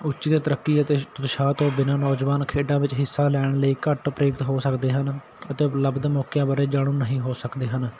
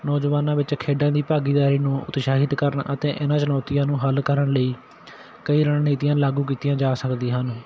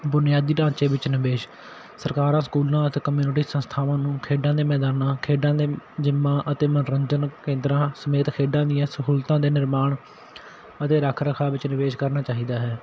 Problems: constant background noise